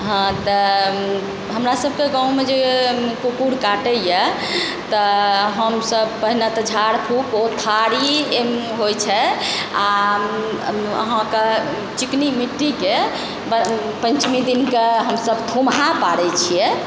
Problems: constant background noise